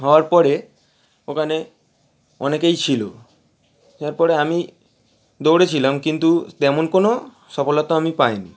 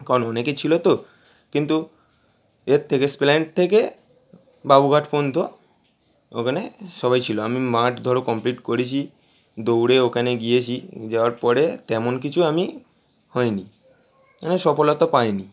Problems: none marked